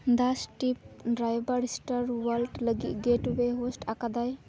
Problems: constant background noise, background conversations at intervals